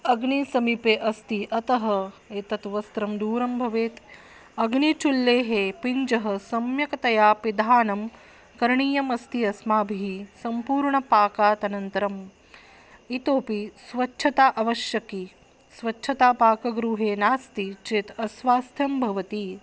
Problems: background sounds at intervals